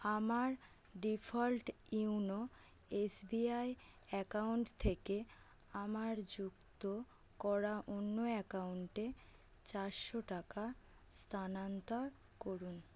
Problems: constant background noise